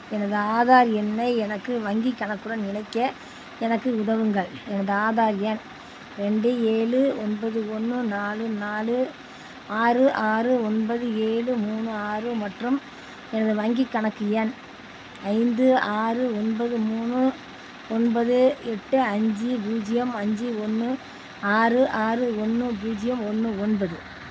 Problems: constant background noise